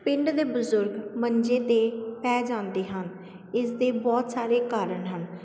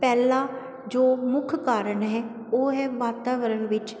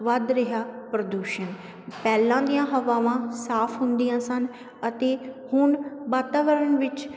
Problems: constant background noise